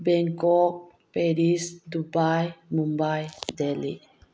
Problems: low volume